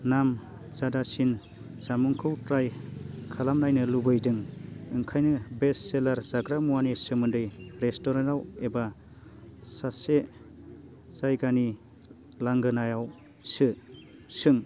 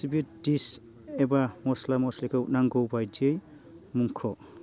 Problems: low volume